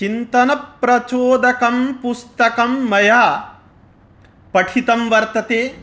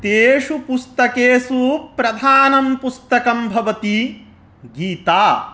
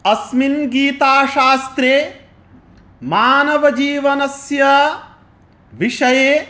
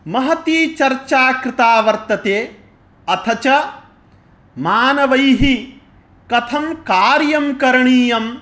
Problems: none marked